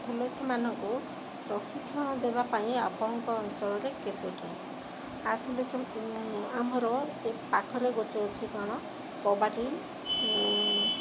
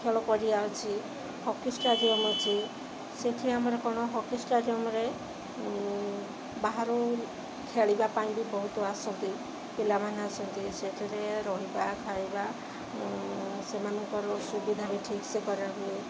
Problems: constant background noise